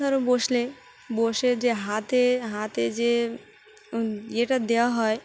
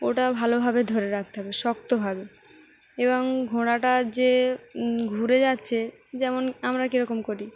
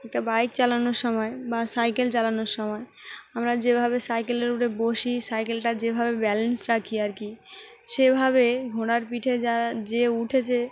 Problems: none marked